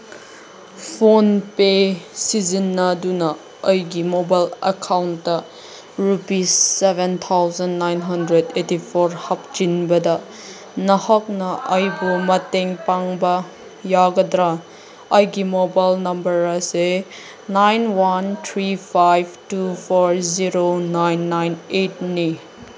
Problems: background sounds at intervals, background conversations at intervals